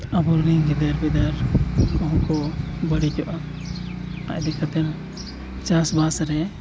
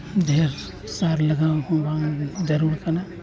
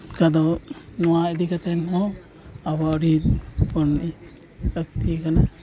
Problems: constant background noise, continuous background conversations